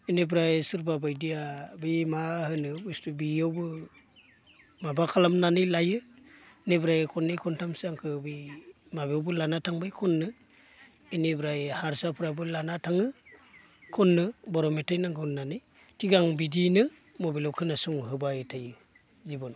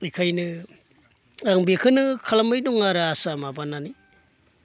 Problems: constant background noise